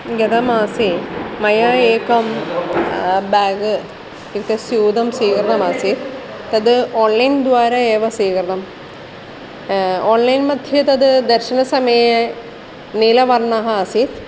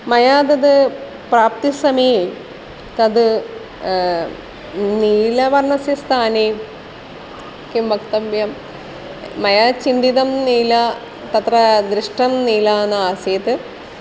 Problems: none marked